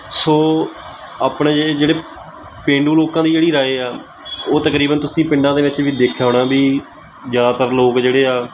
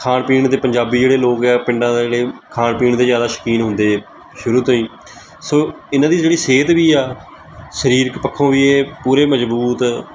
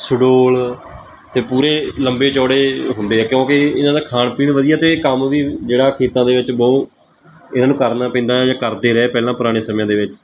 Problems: background sounds at intervals